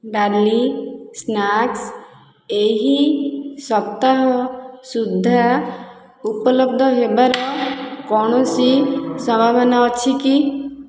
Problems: background sounds at intervals